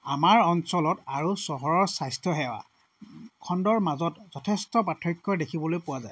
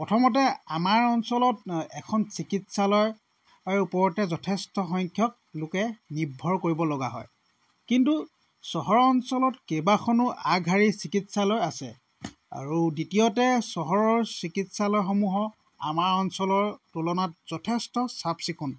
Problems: none marked